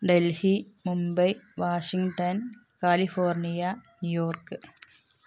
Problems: background sounds at intervals